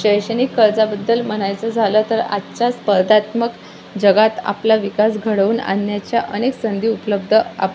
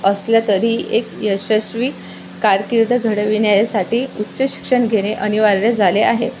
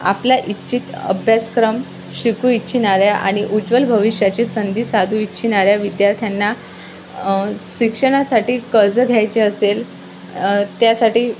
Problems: constant background noise, background conversations at intervals